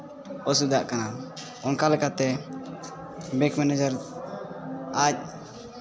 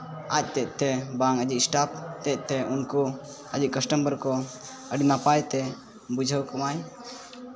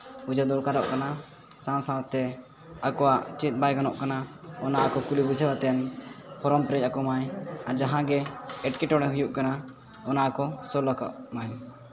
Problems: background sounds at intervals, continuous background conversations